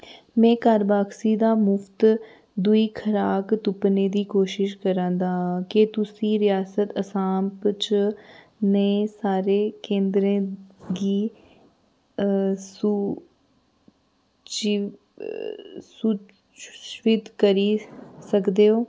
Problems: background sounds at intervals